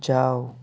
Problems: none marked